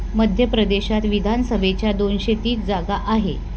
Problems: none marked